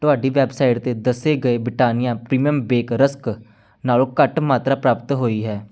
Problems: none marked